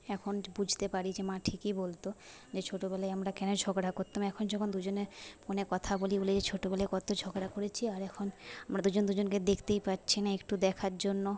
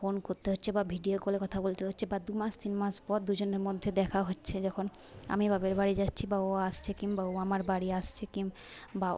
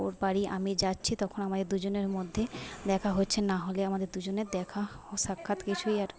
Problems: constant background noise, low volume